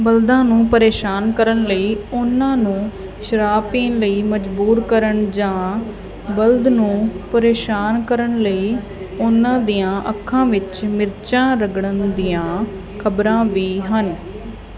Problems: continuous background conversations